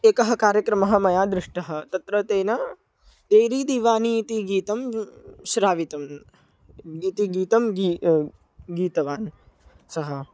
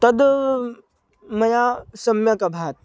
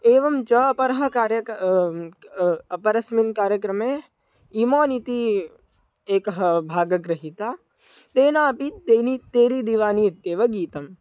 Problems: none marked